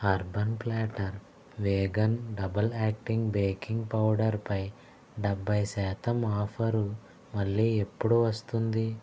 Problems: none marked